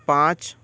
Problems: constant background noise